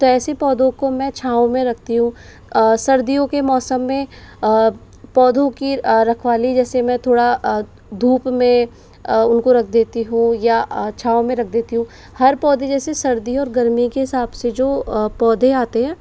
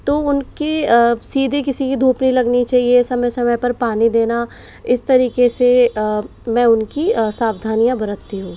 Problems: background sounds at intervals